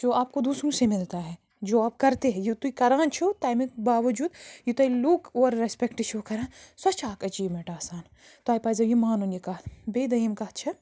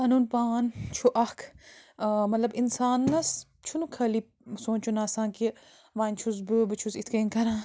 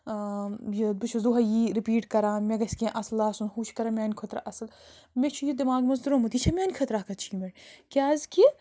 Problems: constant background noise